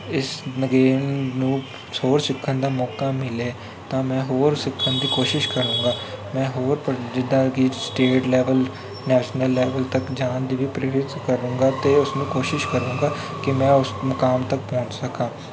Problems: constant background noise